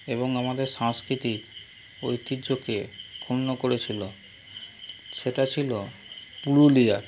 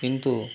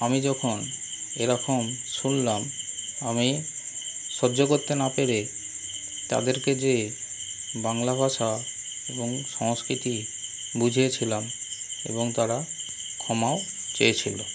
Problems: constant background noise